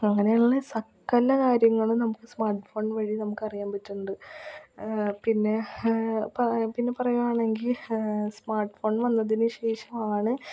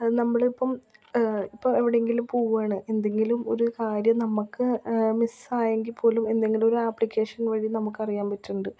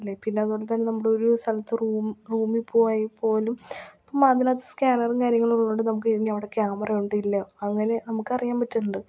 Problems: low volume